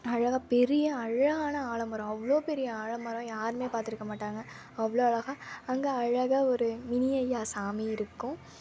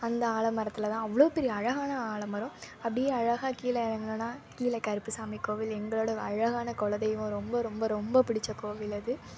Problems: constant background noise